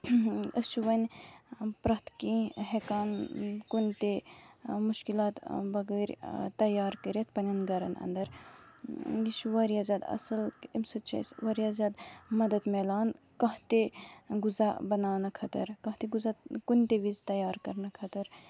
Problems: background sounds at intervals